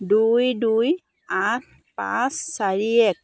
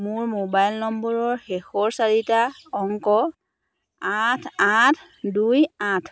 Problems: constant background noise